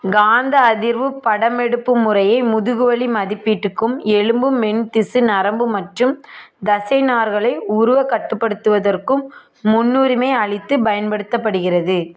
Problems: background conversations at intervals